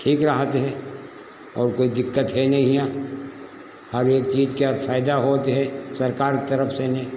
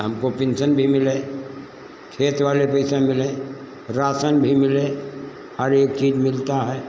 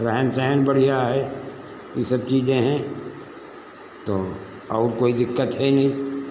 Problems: constant background noise